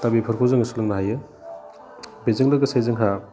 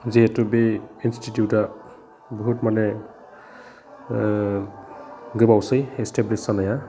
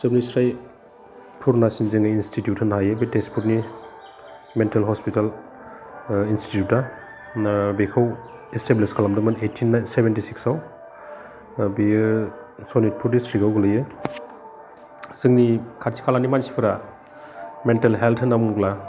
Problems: constant background noise